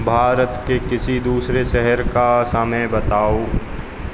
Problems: none marked